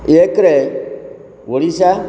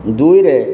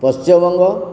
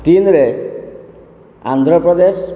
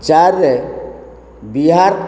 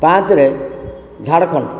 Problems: constant background noise